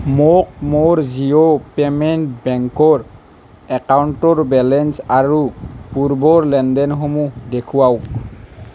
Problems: none marked